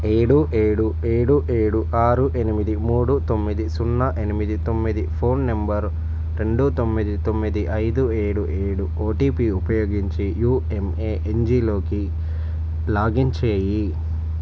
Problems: none marked